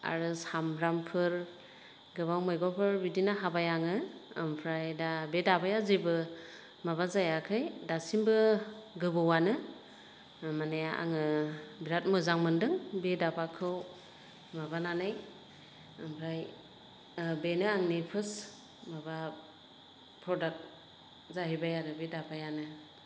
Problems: constant background noise